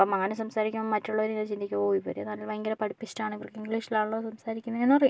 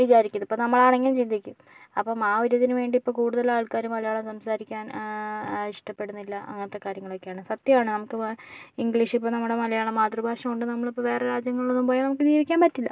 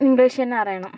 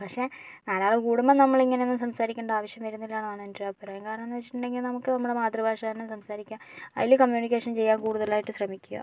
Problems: low volume